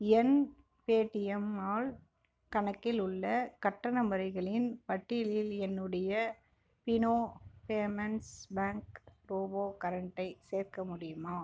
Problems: background sounds at intervals